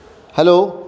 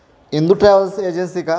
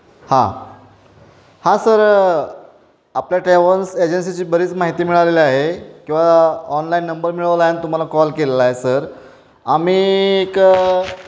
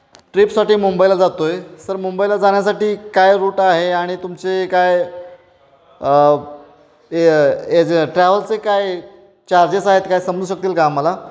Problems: constant background noise, background conversations at intervals